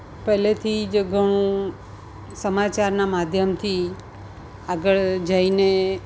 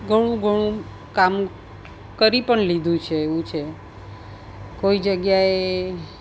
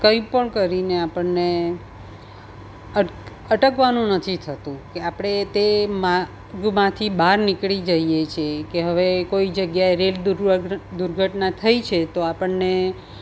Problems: none marked